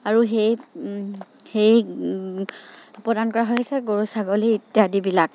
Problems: background sounds at intervals